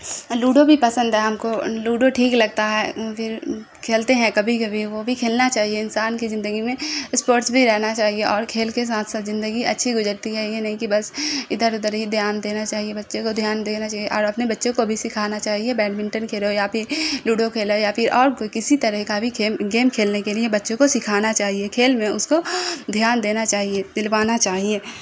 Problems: constant background noise